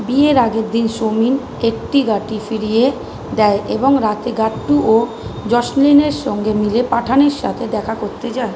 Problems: constant background noise